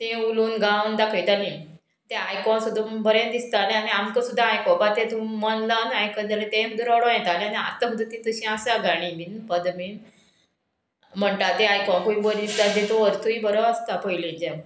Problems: background sounds at intervals